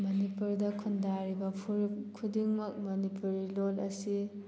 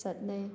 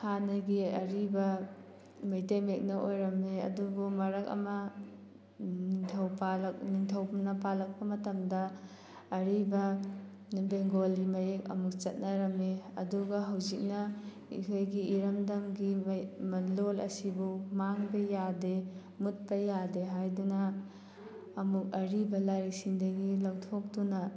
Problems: background sounds at intervals